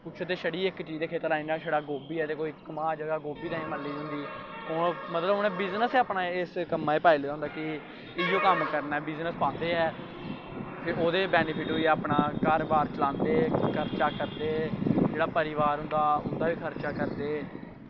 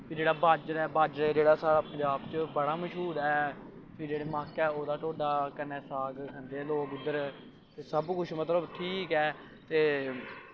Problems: background sounds at intervals